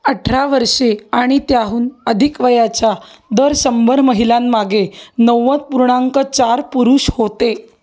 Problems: none marked